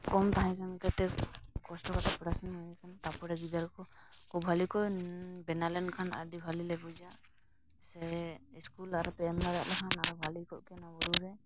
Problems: constant background noise